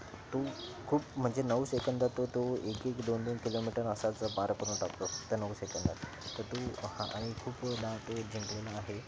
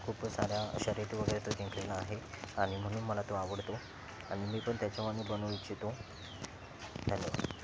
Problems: constant background noise